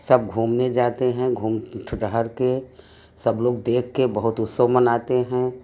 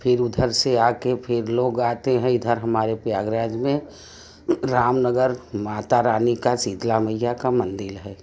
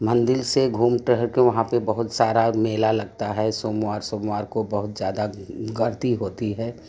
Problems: background sounds at intervals, background conversations at intervals